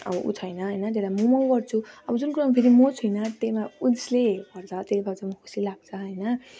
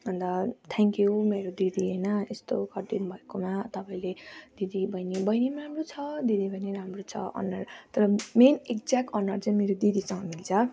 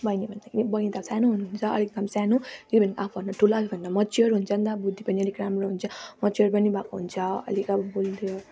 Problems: none marked